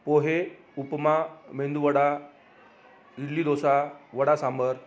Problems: none marked